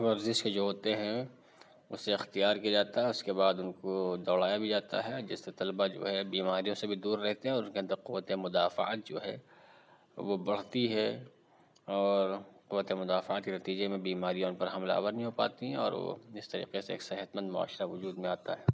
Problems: none marked